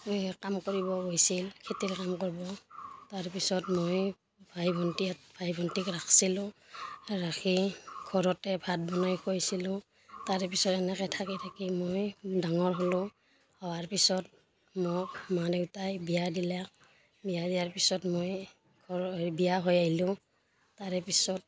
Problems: constant background noise, background conversations at intervals